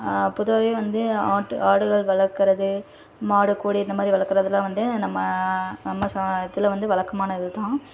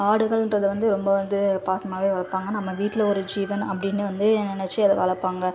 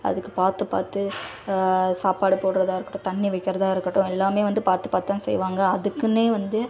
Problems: constant background noise, continuous background conversations